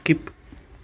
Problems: none marked